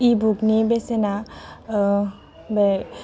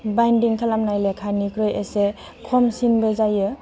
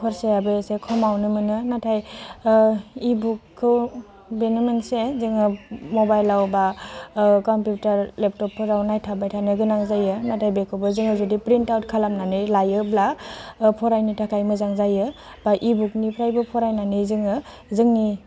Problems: constant background noise